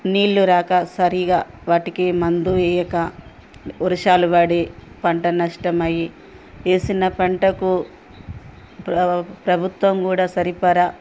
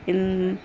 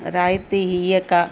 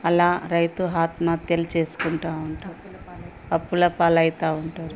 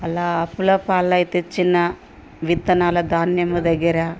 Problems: background sounds at intervals, background conversations at intervals